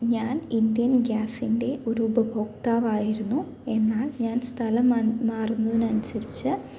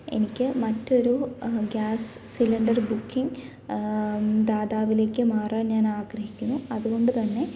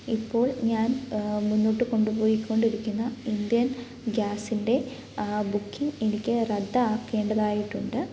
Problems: none marked